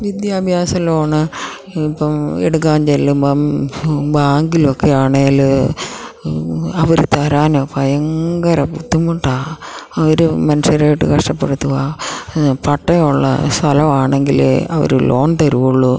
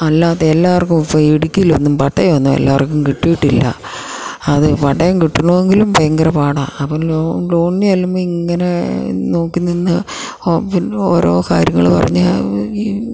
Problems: low volume